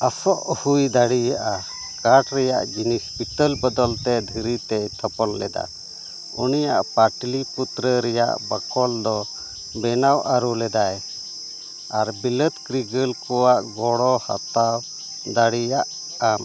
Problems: constant background noise